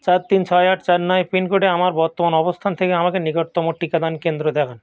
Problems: none marked